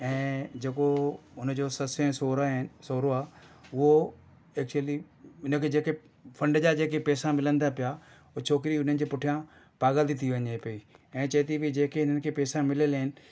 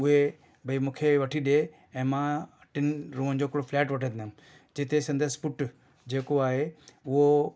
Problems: none marked